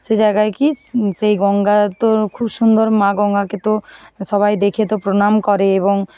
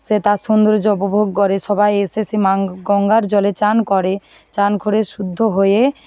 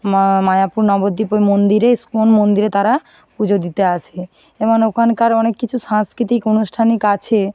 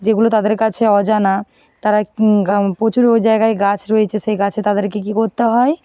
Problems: constant background noise